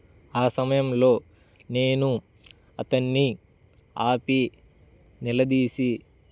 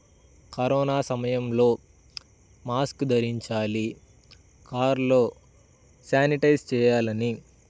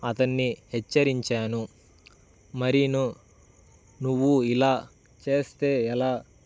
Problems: constant background noise